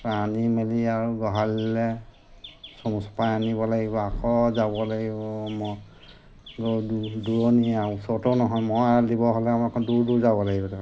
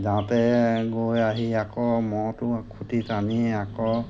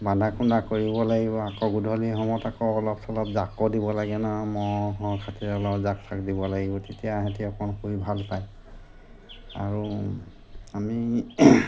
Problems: constant background noise